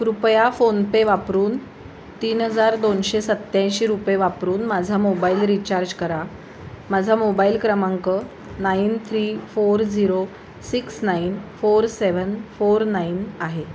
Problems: constant background noise